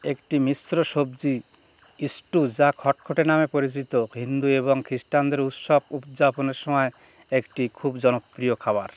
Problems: none marked